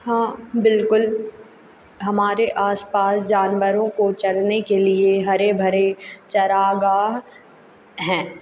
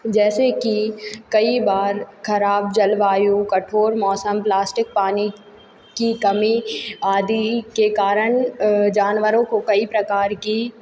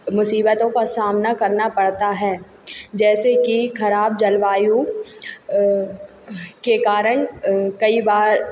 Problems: constant background noise